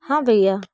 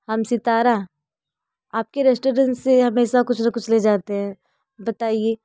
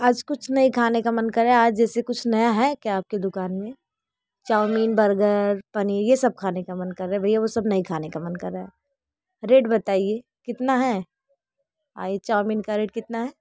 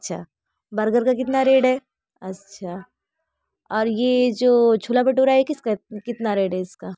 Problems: none marked